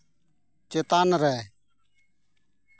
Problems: none marked